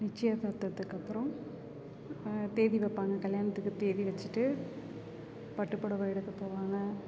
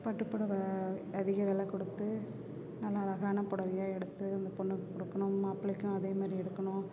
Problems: continuous background conversations